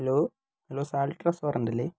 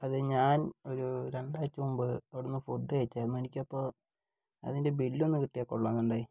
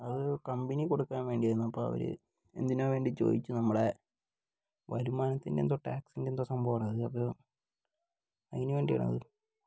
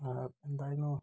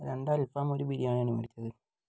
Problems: low volume